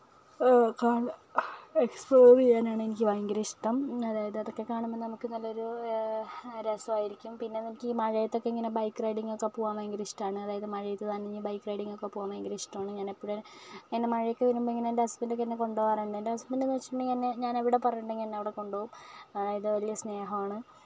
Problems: none marked